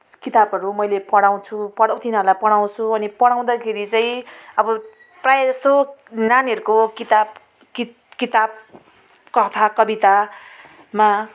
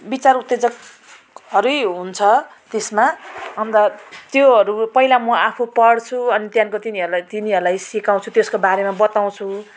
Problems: background sounds at intervals